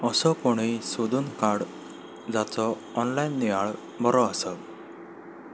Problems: none marked